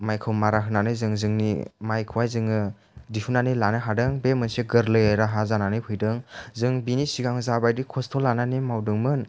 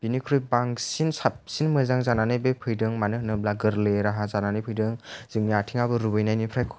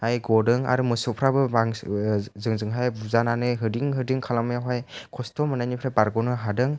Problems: low volume